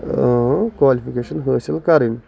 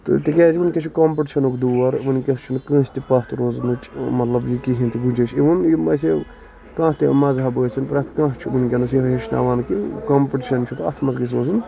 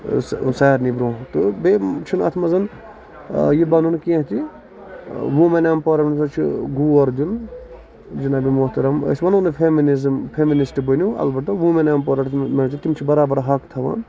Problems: constant background noise, background conversations at intervals